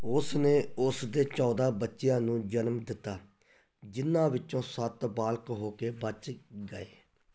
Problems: background sounds at intervals